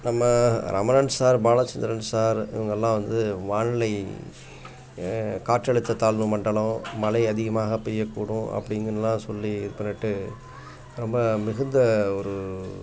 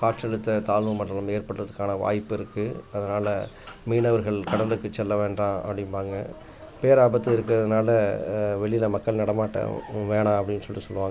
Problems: constant background noise, background conversations at intervals